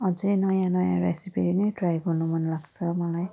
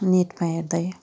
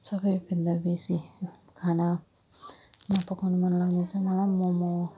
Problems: none marked